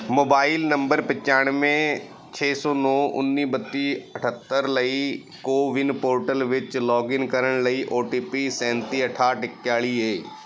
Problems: background sounds at intervals